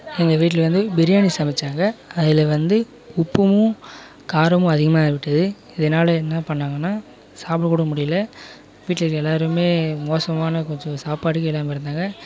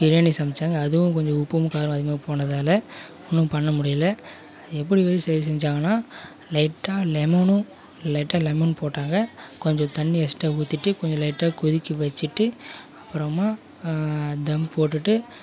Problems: background conversations at intervals